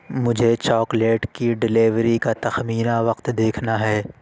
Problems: constant background noise